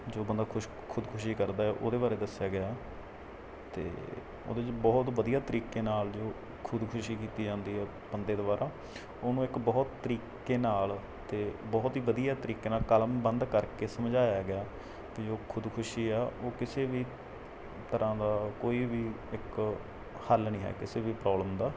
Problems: none marked